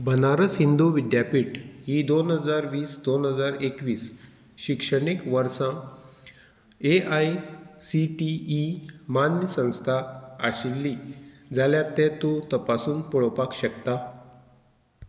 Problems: background sounds at intervals